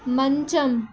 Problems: none marked